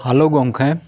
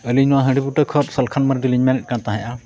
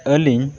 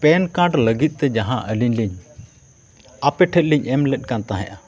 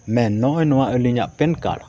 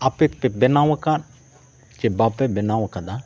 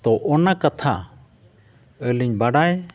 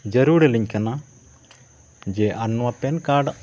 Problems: background sounds at intervals